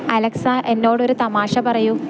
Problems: none marked